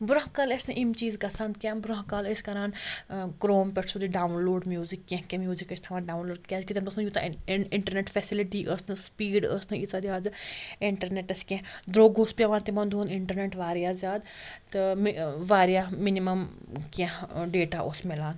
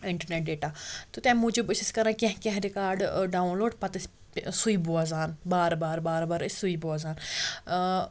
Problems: constant background noise